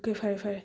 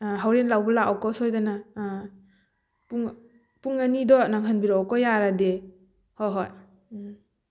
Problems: background sounds at intervals